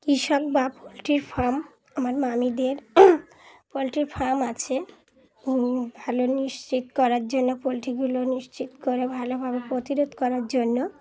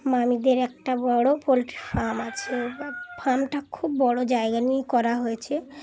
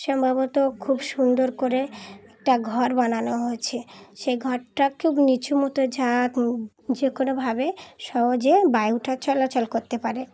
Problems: constant background noise, background conversations at intervals